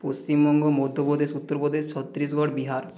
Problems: echo